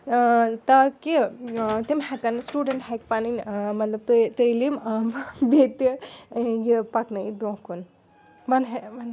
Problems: background sounds at intervals, continuous background conversations